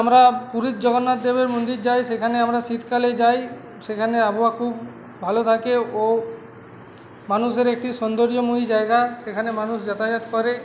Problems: constant background noise, background conversations at intervals